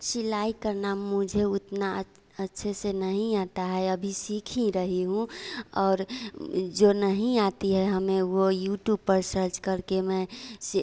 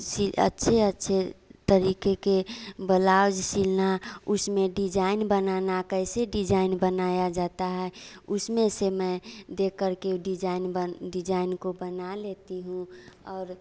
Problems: constant background noise